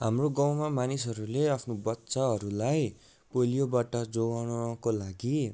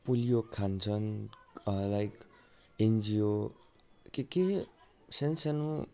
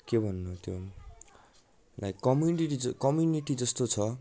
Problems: background conversations at intervals